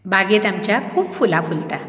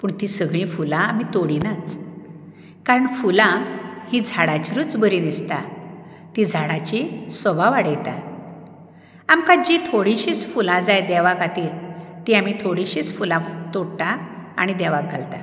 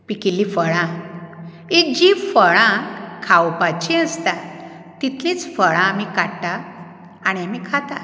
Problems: background sounds at intervals